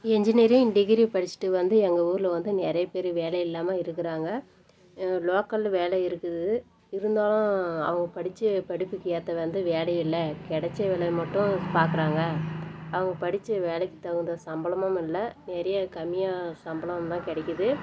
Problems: constant background noise